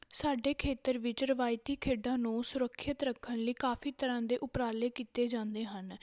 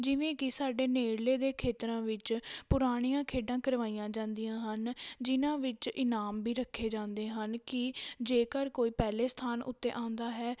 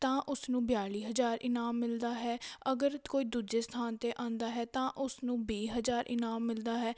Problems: none marked